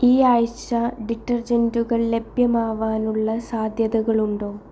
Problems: none marked